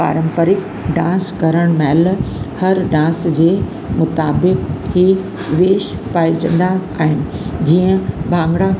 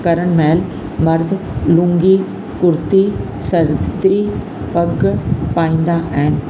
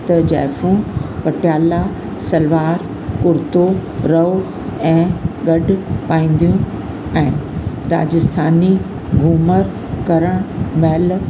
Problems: constant background noise, echo